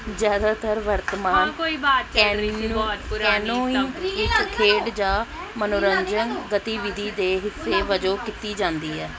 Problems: continuous background conversations